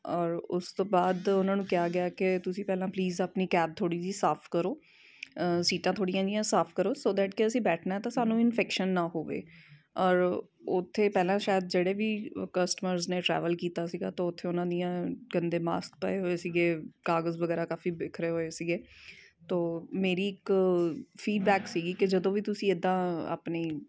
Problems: constant background noise